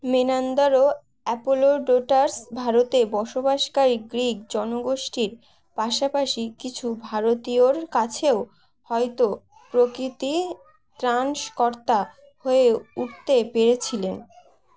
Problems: none marked